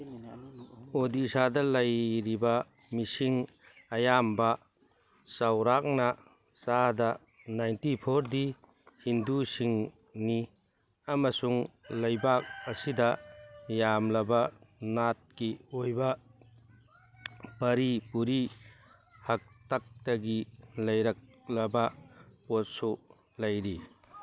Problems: background sounds at intervals